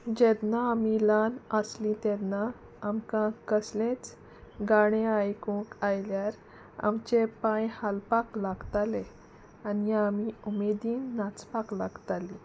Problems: constant background noise